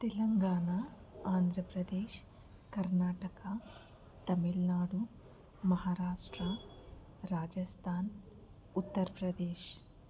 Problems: background sounds at intervals, low volume